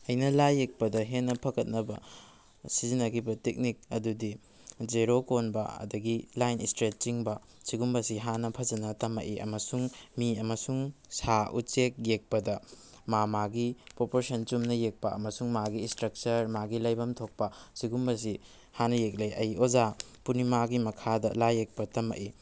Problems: background sounds at intervals